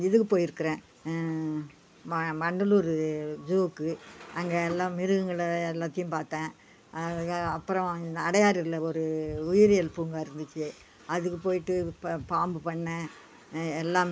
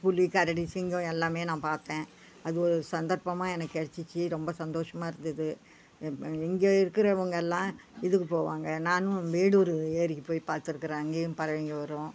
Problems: background sounds at intervals